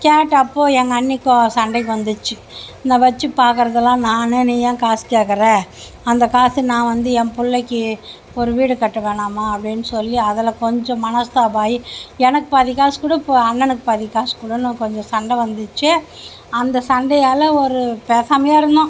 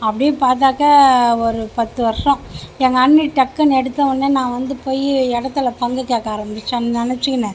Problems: constant background noise